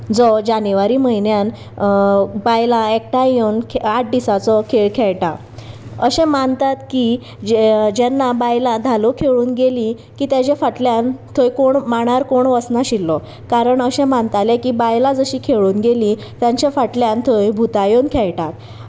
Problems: constant background noise